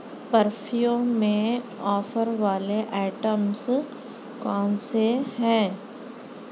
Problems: constant background noise